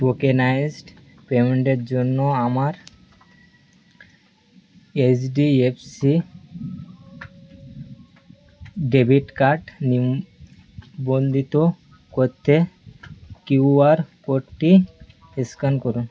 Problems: constant background noise